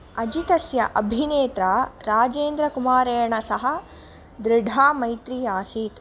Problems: none marked